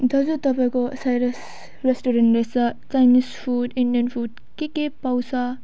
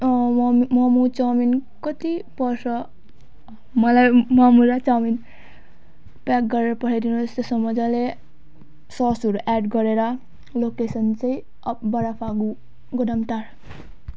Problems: background sounds at intervals